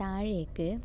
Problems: none marked